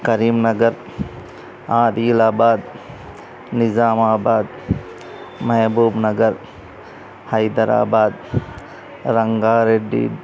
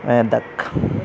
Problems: constant background noise, background conversations at intervals